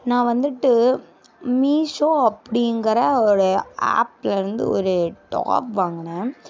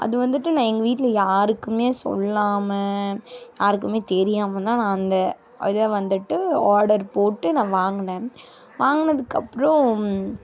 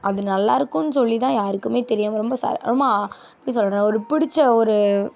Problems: constant background noise